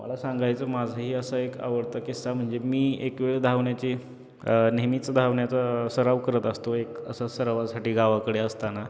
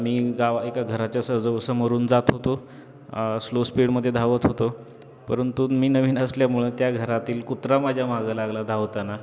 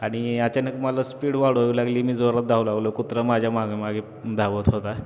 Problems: constant background noise, background conversations at intervals